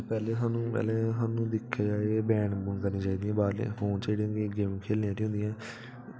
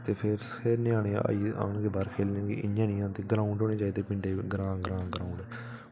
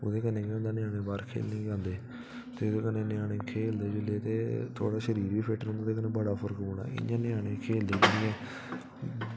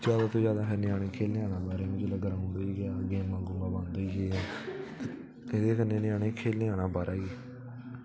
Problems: constant background noise